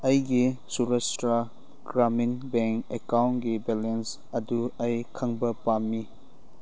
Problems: background sounds at intervals